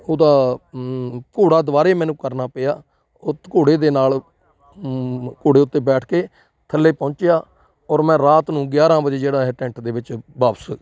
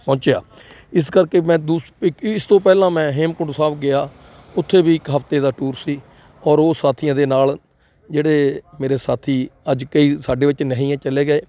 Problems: none marked